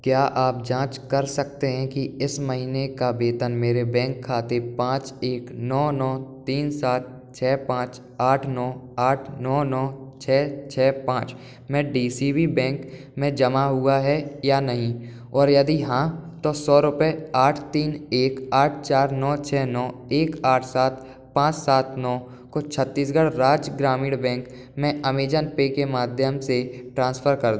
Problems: none marked